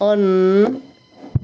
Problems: none marked